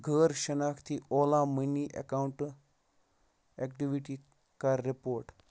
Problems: background sounds at intervals